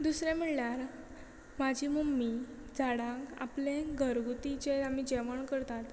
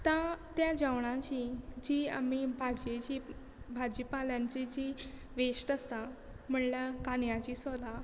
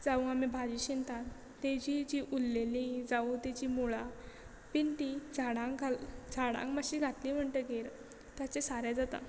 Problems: constant background noise